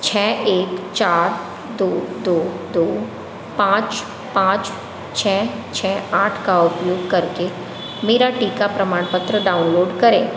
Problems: constant background noise